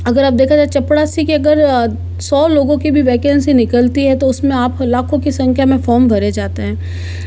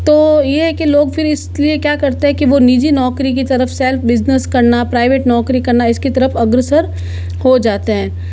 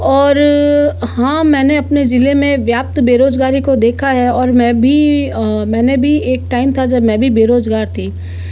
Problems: none marked